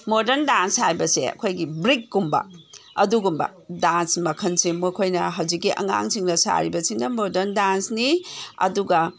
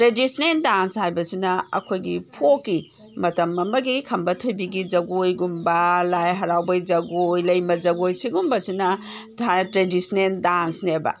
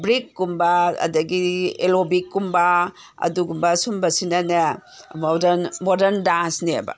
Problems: background sounds at intervals